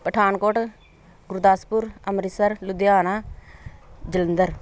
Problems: background sounds at intervals